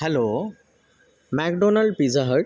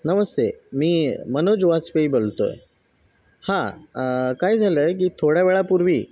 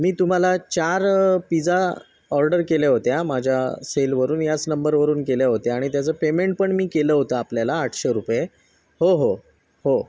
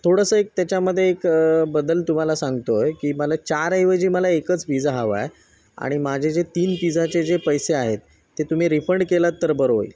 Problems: background sounds at intervals